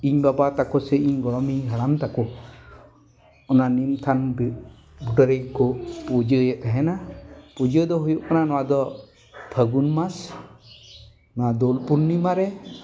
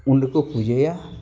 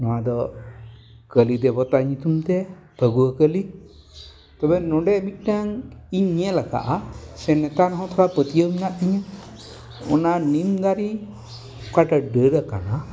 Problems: background sounds at intervals